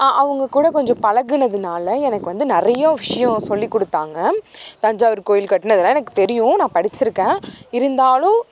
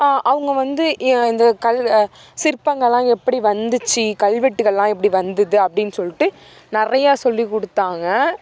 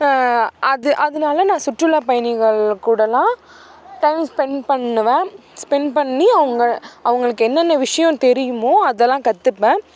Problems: background sounds at intervals